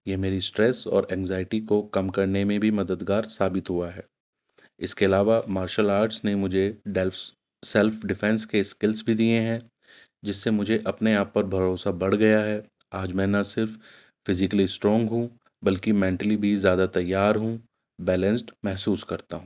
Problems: none marked